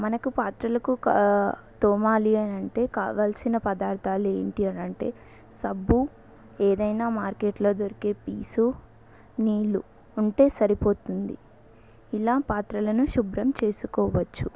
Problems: none marked